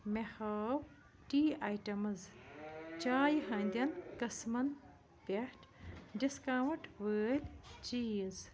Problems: none marked